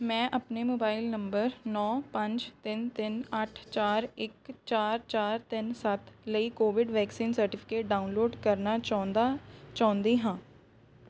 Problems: none marked